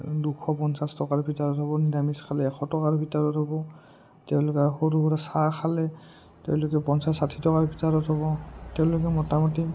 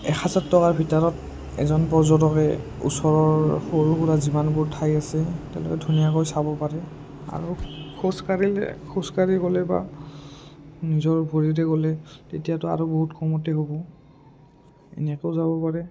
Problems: low volume